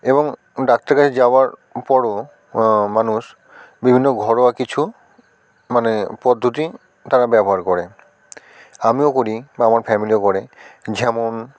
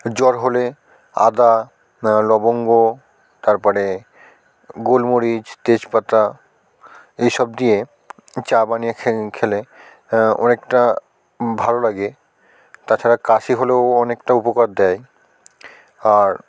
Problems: constant background noise, continuous background conversations